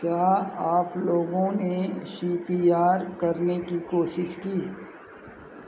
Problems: none marked